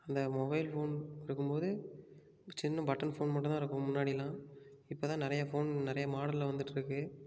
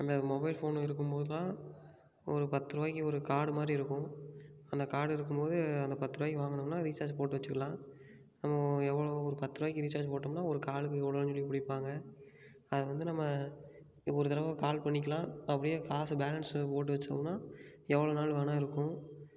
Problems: none marked